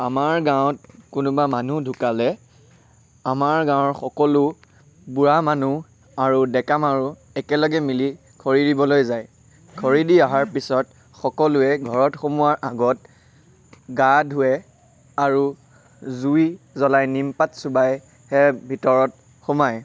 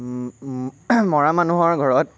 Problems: none marked